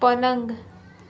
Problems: constant background noise, background conversations at intervals